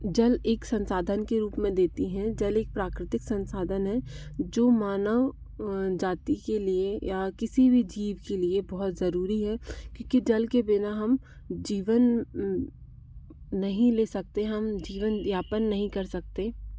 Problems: constant background noise